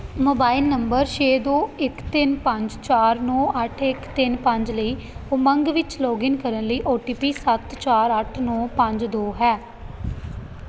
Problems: none marked